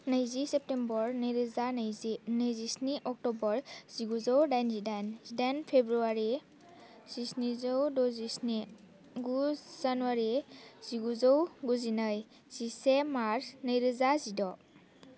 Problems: none marked